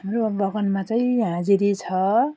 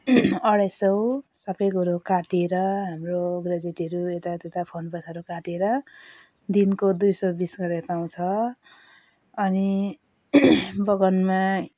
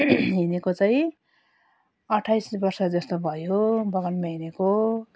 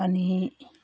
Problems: none marked